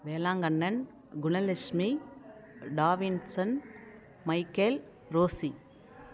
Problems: none marked